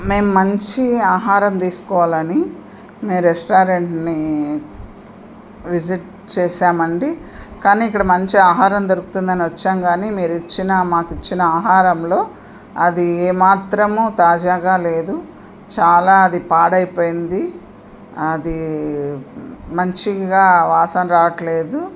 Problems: constant background noise